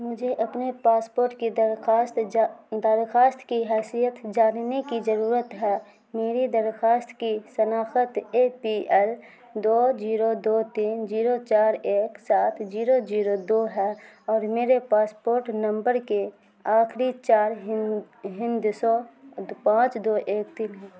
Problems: constant background noise